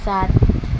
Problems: none marked